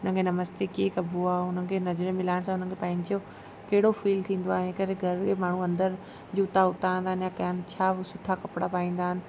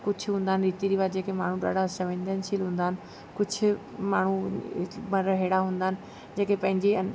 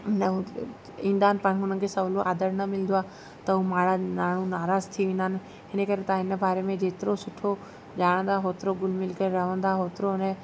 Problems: constant background noise